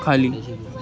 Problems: constant background noise